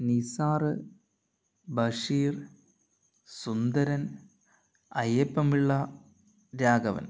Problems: none marked